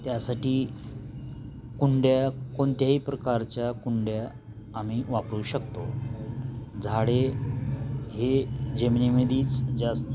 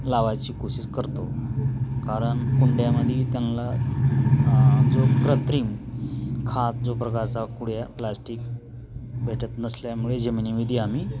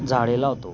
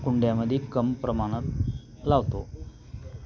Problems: constant background noise